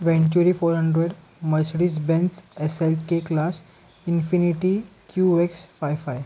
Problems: background sounds at intervals